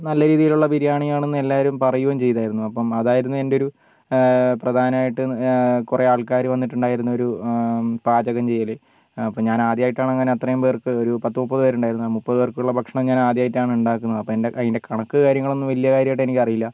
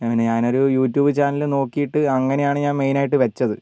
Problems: low volume